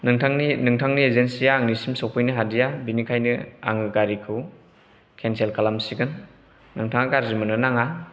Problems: background sounds at intervals